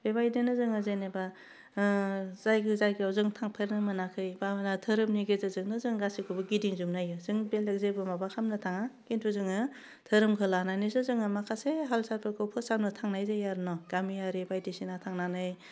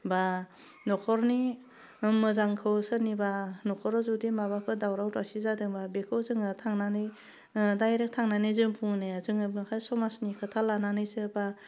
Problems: none marked